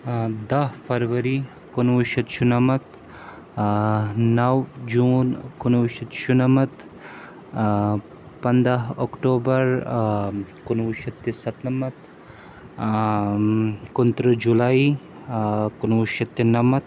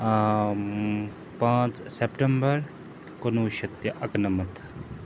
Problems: constant background noise